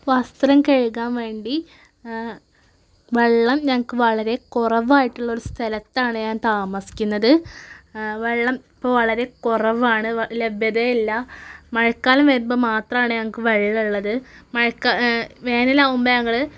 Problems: none marked